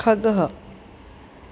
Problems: constant background noise